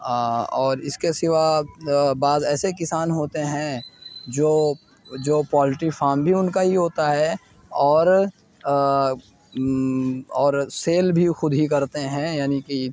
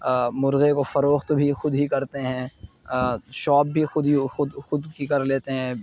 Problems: background sounds at intervals